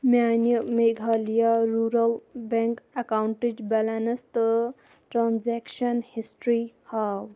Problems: constant background noise